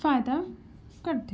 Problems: background sounds at intervals